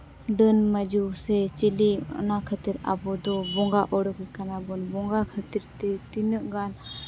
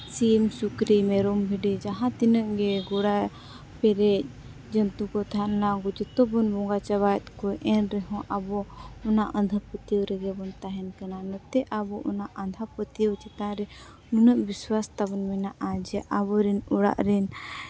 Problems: none marked